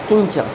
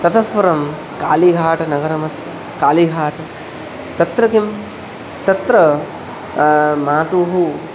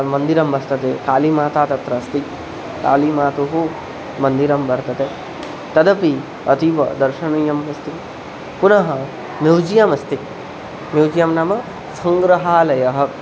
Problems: none marked